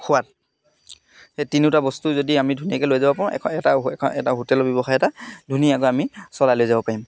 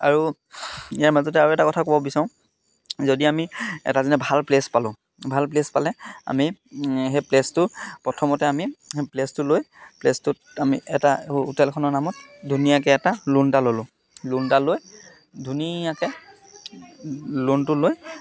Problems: constant background noise, background conversations at intervals